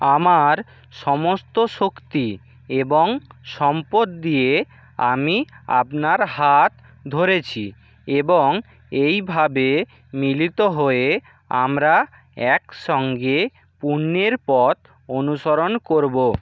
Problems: constant background noise